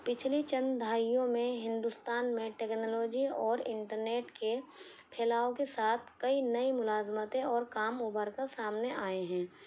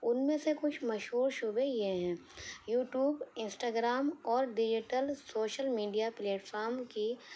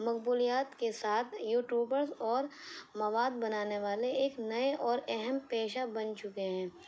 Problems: constant background noise